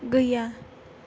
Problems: none marked